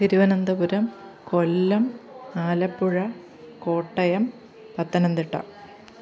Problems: continuous background conversations